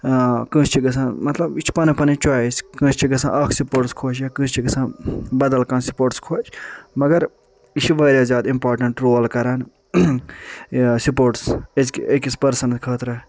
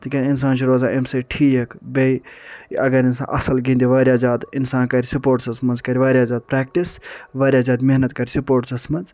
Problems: none marked